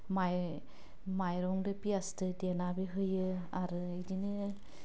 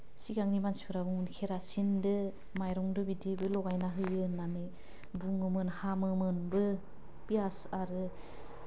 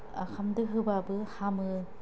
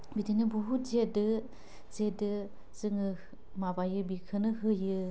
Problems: none marked